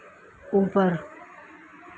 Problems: low volume